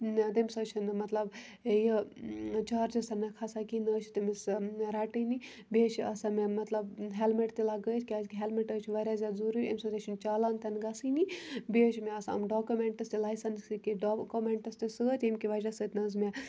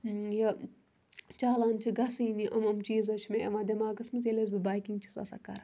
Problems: background sounds at intervals